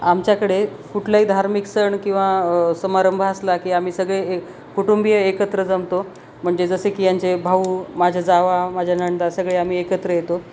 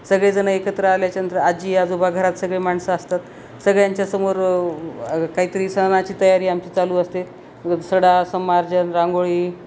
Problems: constant background noise